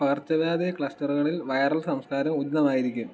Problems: none marked